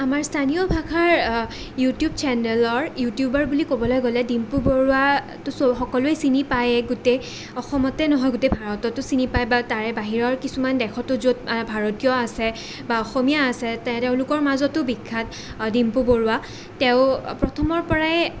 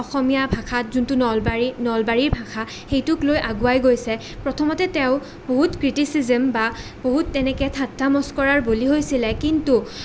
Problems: none marked